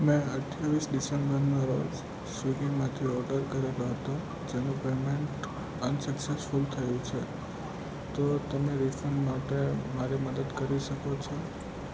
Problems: constant background noise, low volume